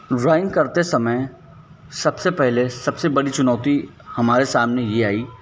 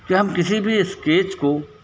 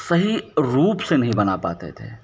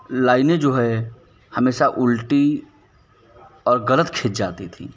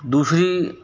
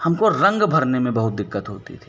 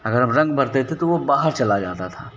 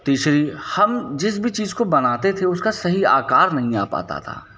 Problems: none marked